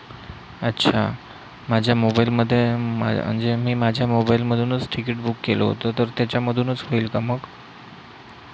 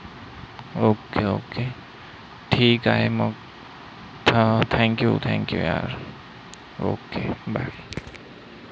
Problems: constant background noise